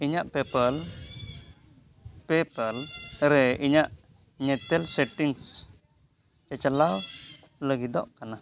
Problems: constant background noise